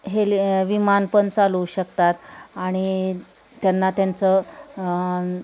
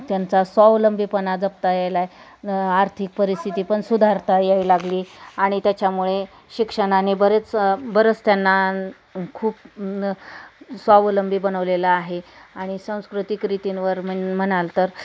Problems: constant background noise, background conversations at intervals